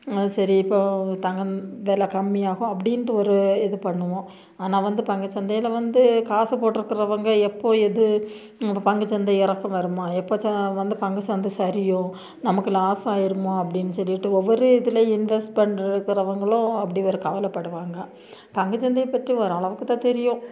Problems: none marked